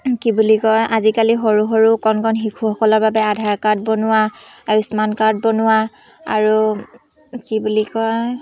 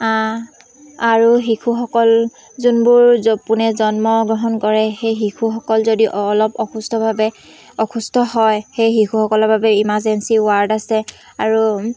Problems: constant background noise, background conversations at intervals